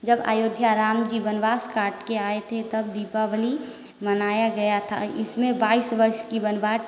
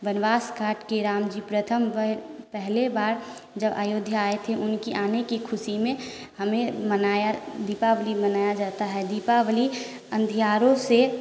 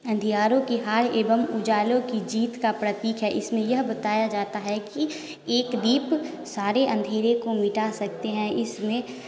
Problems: constant background noise